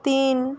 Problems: constant background noise